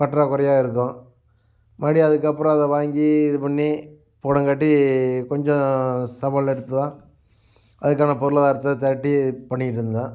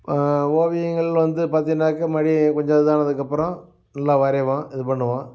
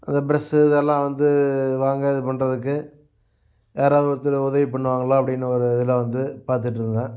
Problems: none marked